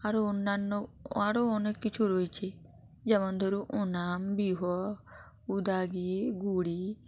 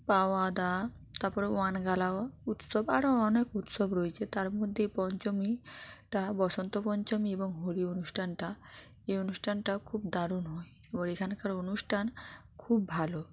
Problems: constant background noise